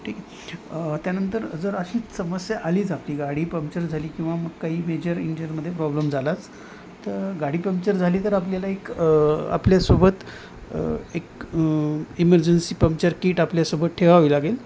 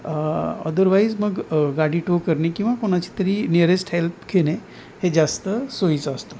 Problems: none marked